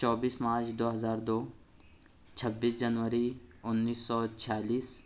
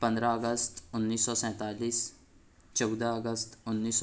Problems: none marked